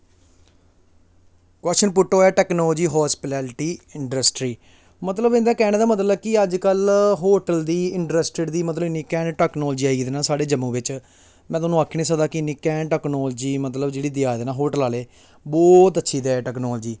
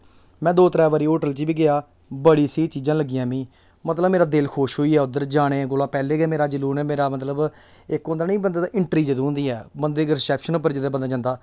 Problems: none marked